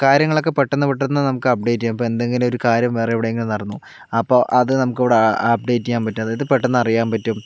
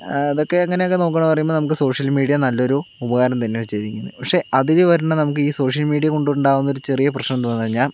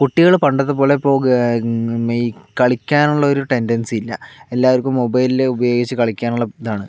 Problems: background sounds at intervals